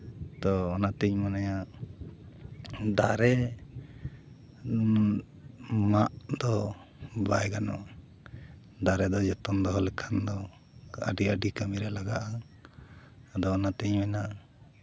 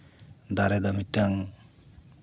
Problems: none marked